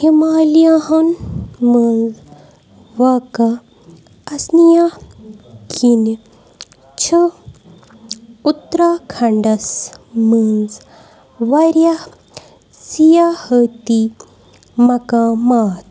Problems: background sounds at intervals